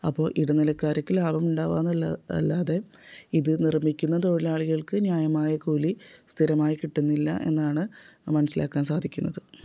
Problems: none marked